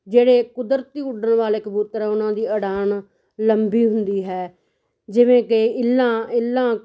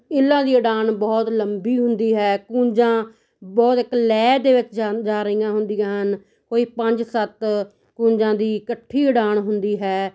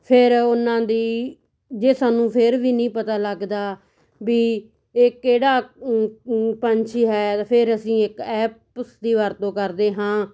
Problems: none marked